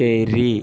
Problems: constant background noise